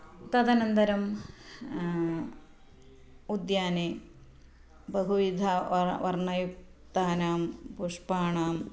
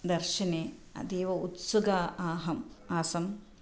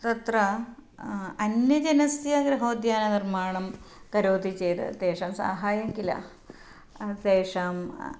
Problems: none marked